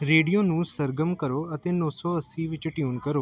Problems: background conversations at intervals